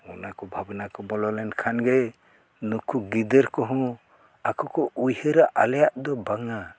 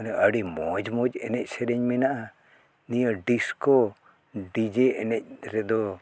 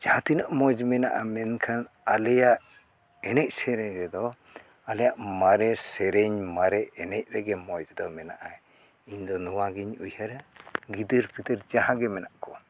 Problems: background sounds at intervals